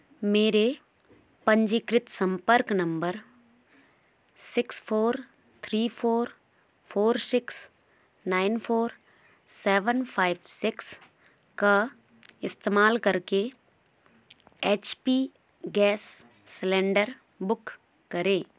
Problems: none marked